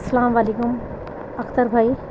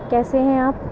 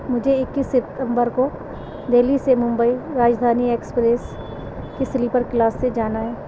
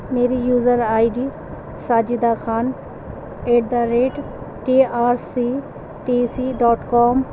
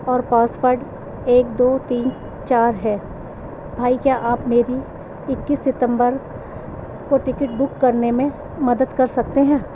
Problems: constant background noise